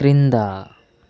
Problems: constant background noise